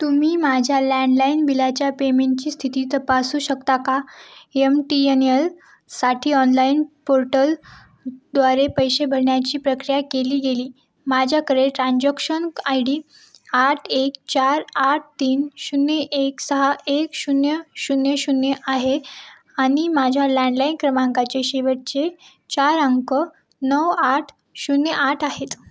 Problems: background sounds at intervals